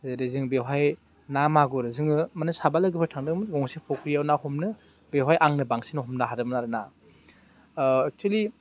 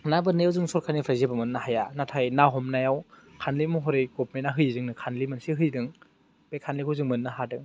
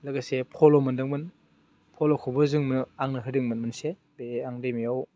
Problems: none marked